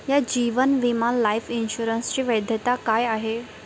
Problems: none marked